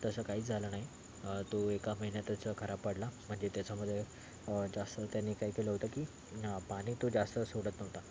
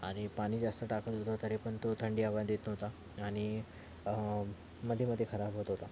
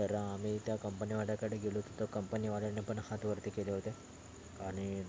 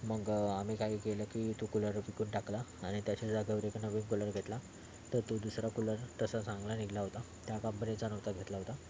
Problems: constant background noise, background conversations at intervals